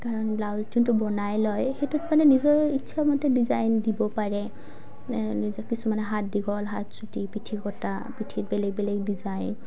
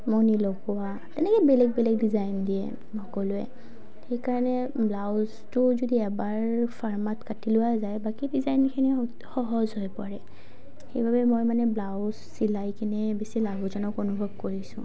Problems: low volume